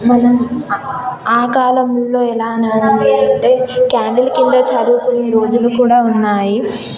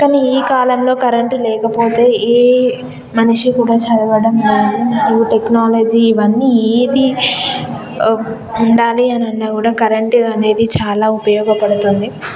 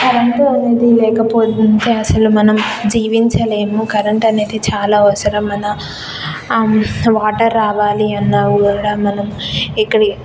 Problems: constant background noise, background conversations at intervals